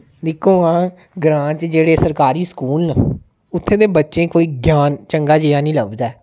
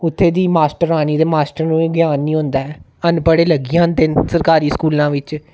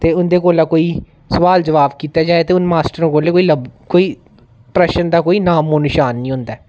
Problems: none marked